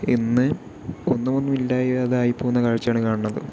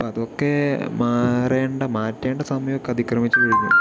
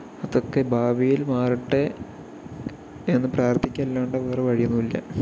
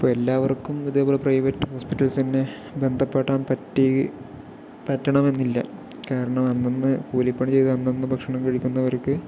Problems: constant background noise, low volume